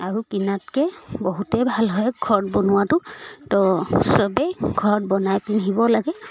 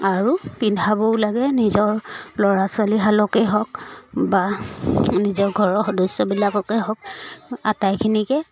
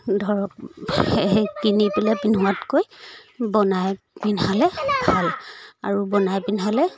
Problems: background conversations at intervals